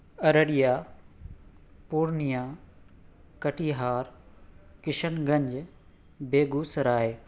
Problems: none marked